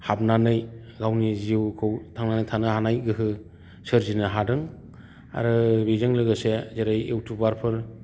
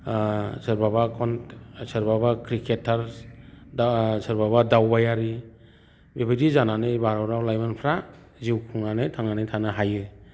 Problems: constant background noise